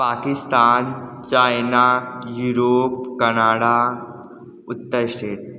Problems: constant background noise, echo